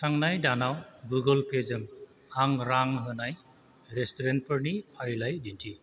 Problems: constant background noise